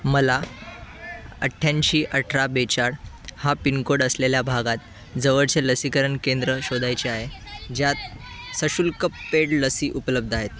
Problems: constant background noise, continuous background conversations